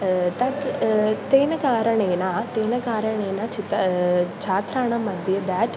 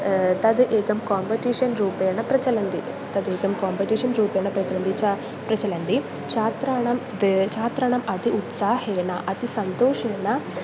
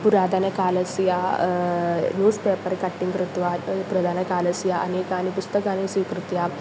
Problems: constant background noise